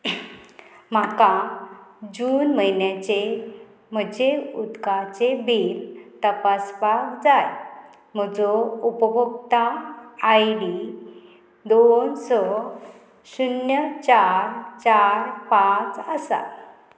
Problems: constant background noise